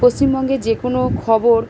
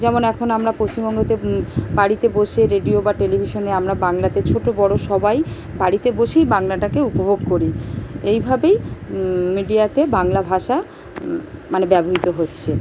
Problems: none marked